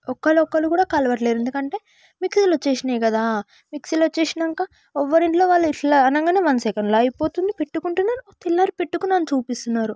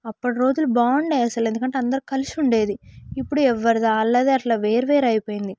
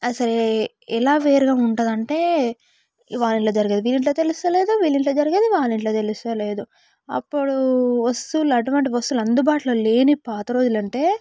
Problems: background sounds at intervals